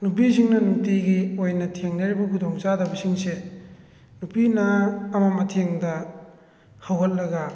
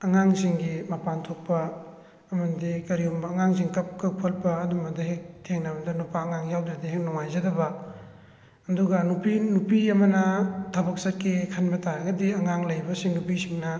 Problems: background sounds at intervals